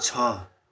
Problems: none marked